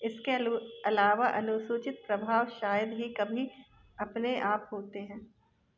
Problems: background sounds at intervals